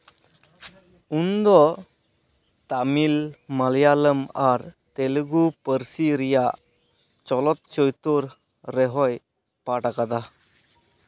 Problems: none marked